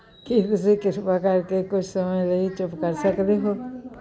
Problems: none marked